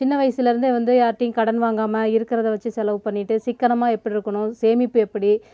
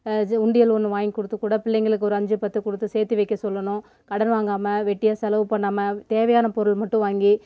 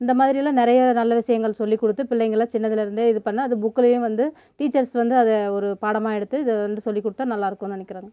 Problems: none marked